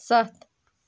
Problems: none marked